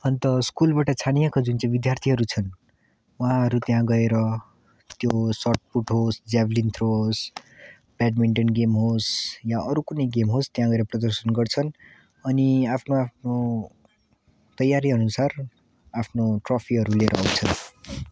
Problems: background sounds at intervals